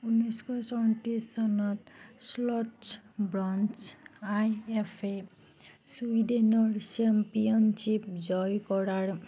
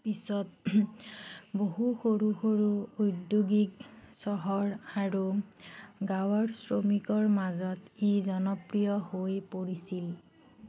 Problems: none marked